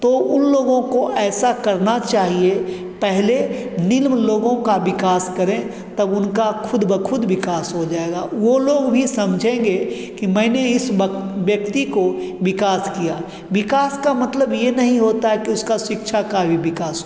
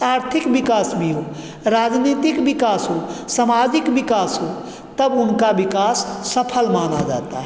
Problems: constant background noise, background conversations at intervals, echo